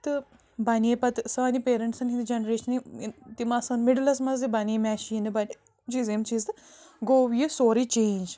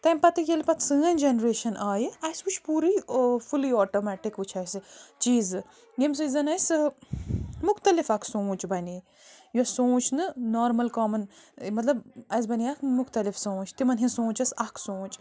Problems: constant background noise